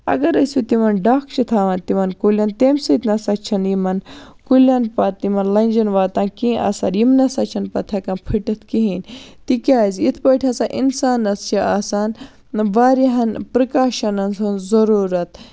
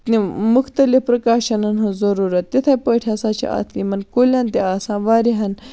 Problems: none marked